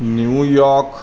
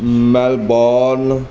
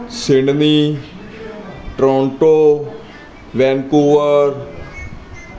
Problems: constant background noise, background conversations at intervals